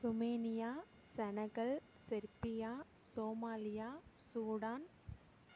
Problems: none marked